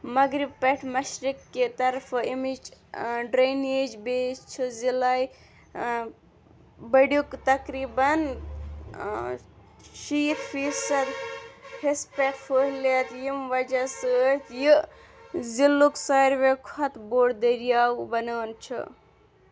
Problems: constant background noise